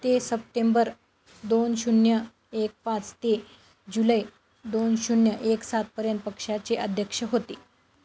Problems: constant background noise